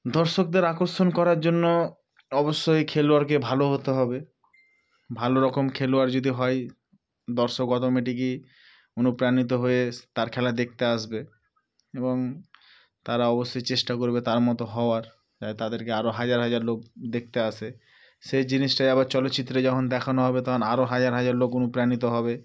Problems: background sounds at intervals